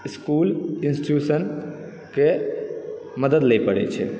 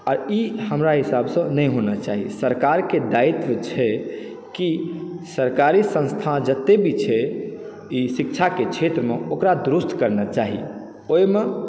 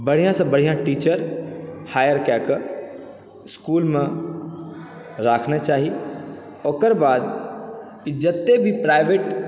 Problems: background sounds at intervals